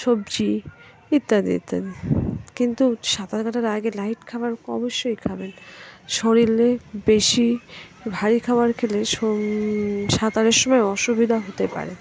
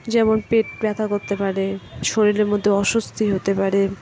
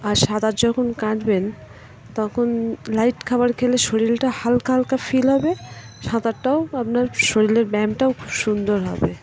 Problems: constant background noise, background conversations at intervals